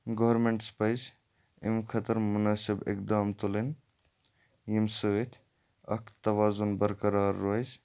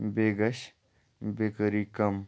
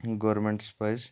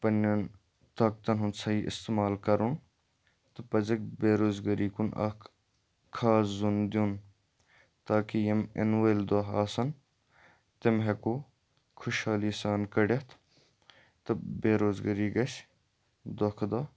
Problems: background sounds at intervals